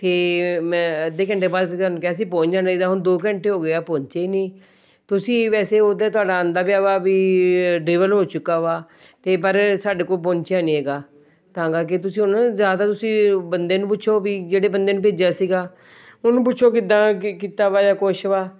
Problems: background sounds at intervals